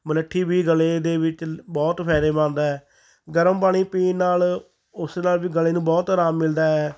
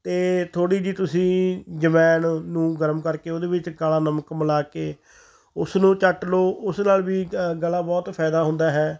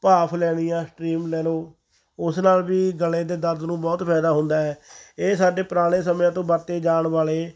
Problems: background sounds at intervals